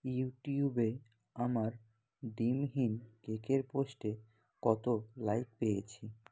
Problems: none marked